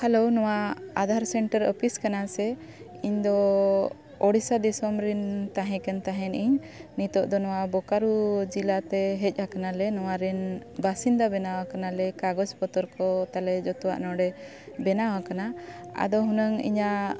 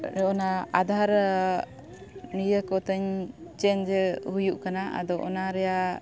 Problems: background sounds at intervals